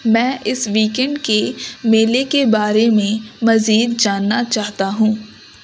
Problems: constant background noise